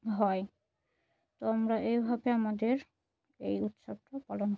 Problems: none marked